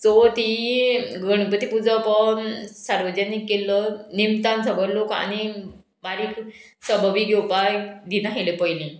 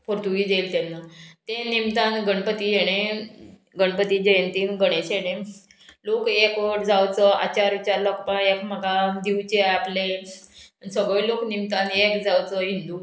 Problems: background sounds at intervals